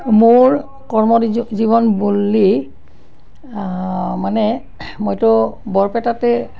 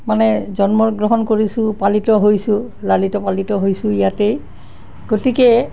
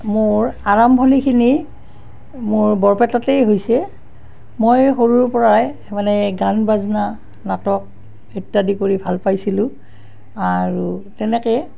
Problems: constant background noise